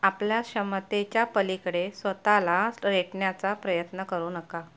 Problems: none marked